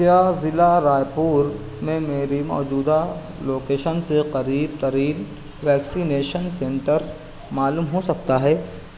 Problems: none marked